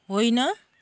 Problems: background sounds at intervals